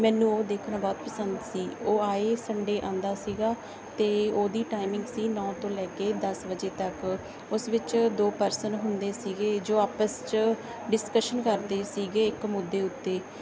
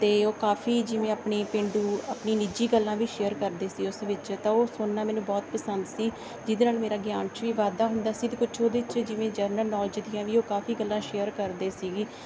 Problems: background sounds at intervals